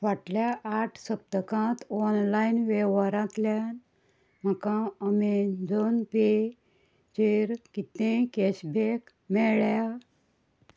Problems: background sounds at intervals